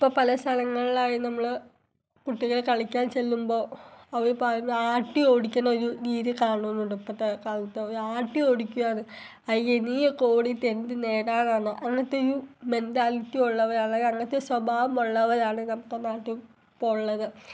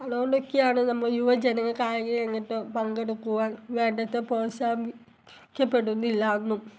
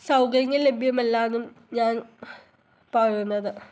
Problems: background sounds at intervals